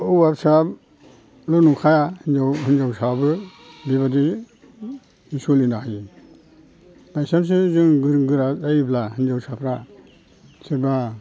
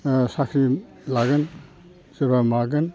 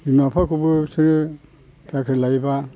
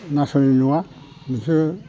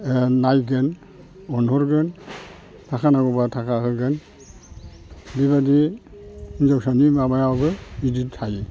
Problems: constant background noise